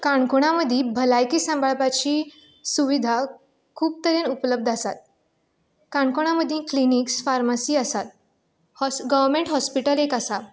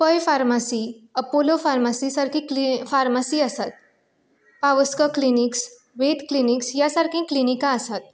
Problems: none marked